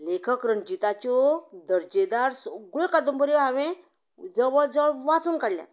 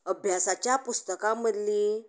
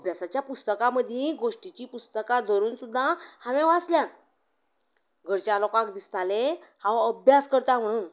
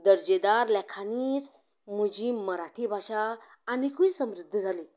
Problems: background conversations at intervals